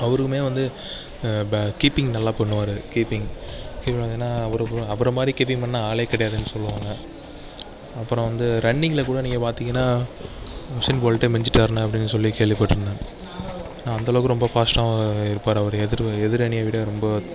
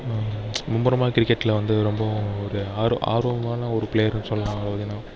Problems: background sounds at intervals